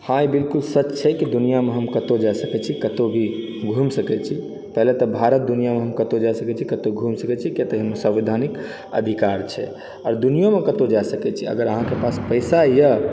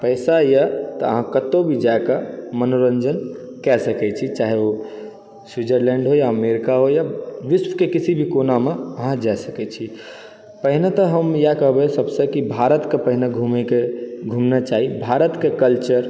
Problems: background sounds at intervals